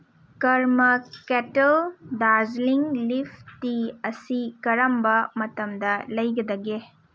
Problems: none marked